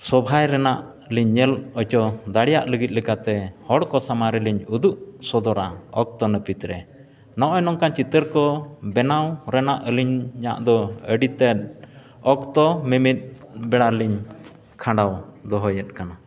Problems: echo